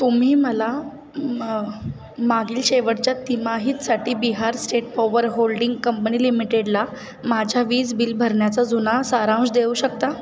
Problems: constant background noise, background conversations at intervals